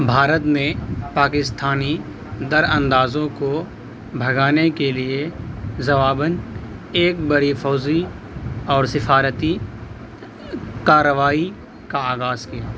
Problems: constant background noise